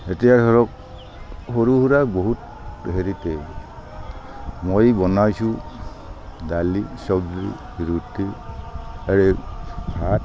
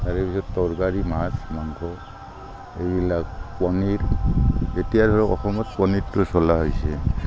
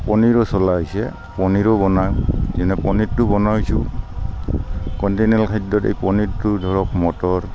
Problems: constant background noise